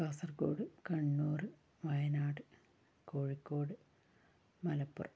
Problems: low volume